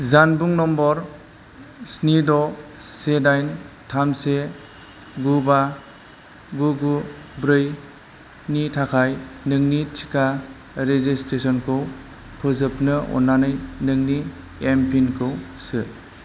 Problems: none marked